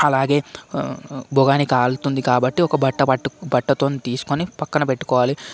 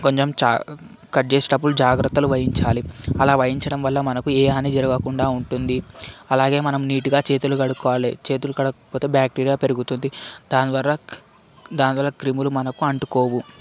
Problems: constant background noise, background conversations at intervals